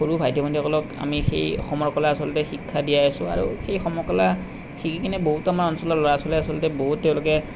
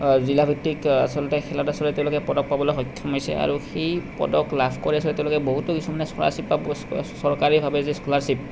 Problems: none marked